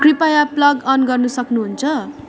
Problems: none marked